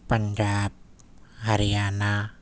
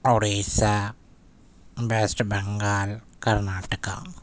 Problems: none marked